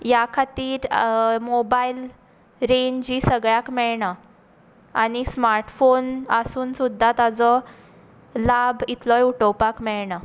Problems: background sounds at intervals, echo